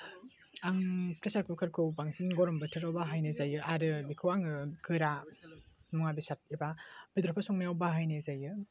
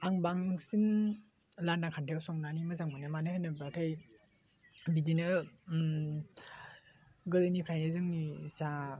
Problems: none marked